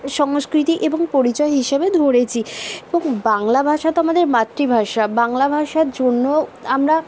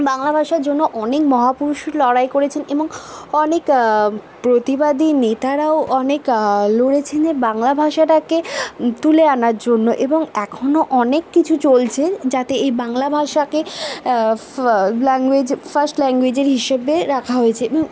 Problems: constant background noise, background conversations at intervals